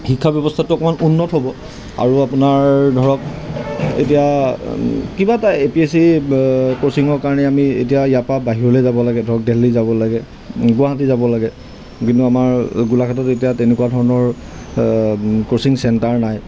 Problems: constant background noise